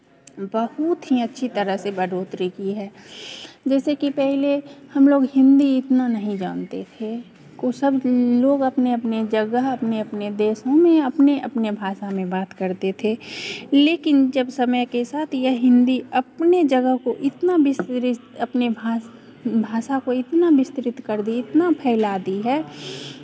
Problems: continuous background conversations